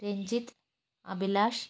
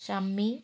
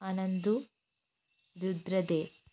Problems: low volume